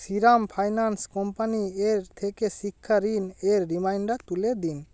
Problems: background sounds at intervals